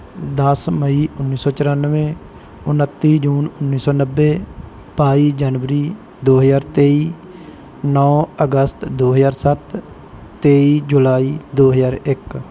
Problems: background sounds at intervals